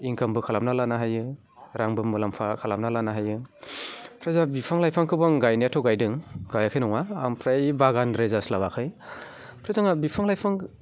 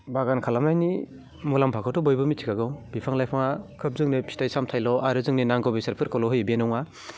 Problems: constant background noise